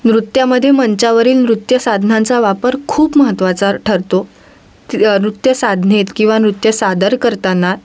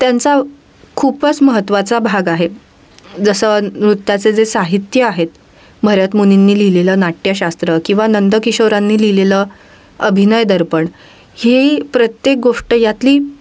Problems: none marked